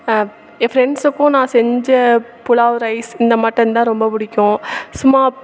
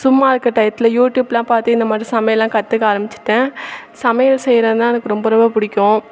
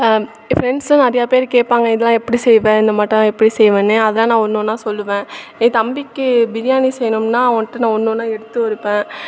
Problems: constant background noise